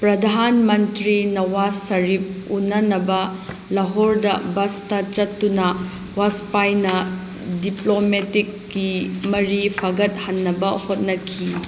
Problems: constant background noise